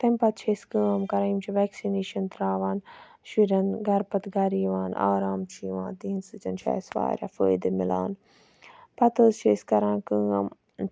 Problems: none marked